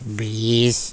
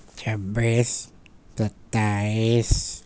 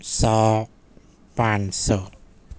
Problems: none marked